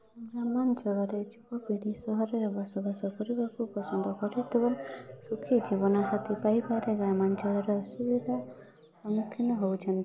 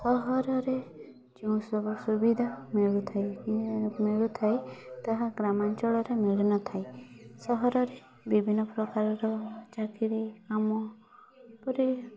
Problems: background sounds at intervals